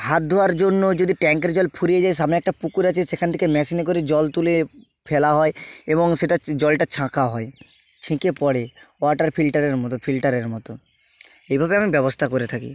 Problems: constant background noise